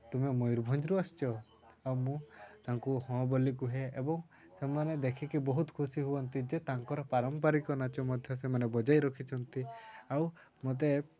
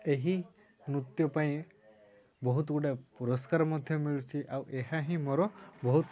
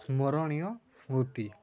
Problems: constant background noise, continuous background conversations